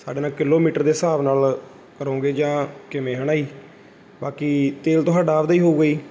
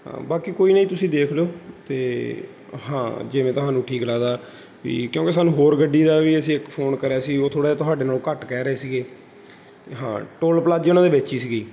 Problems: background sounds at intervals